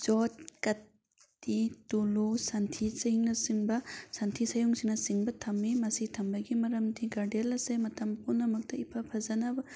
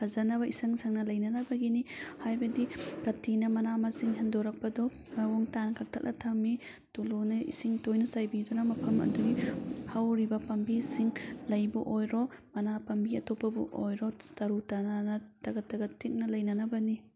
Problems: background sounds at intervals